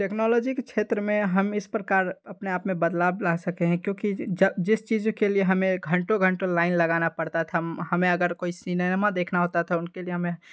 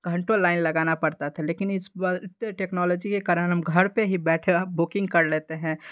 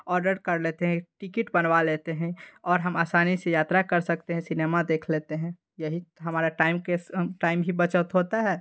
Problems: background sounds at intervals